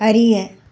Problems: background conversations at intervals